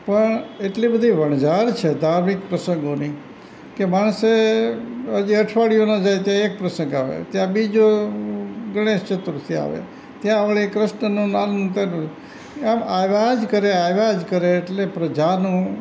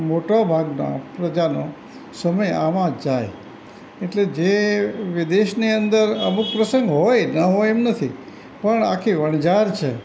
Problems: none marked